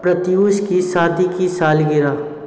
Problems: constant background noise